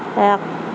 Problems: constant background noise